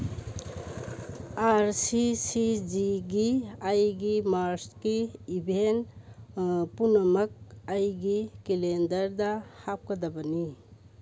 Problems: none marked